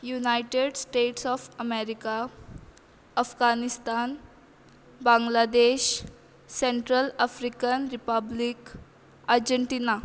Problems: constant background noise